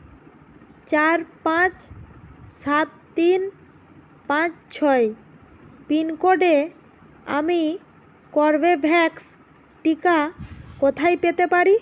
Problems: none marked